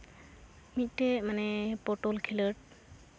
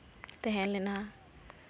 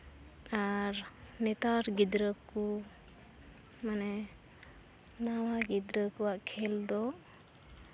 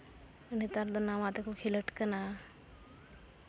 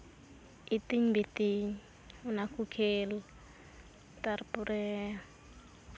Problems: none marked